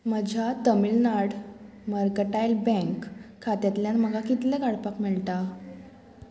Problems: constant background noise